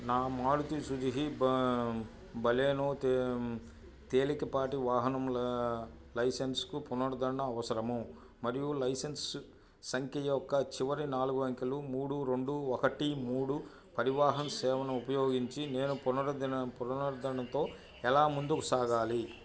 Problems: background sounds at intervals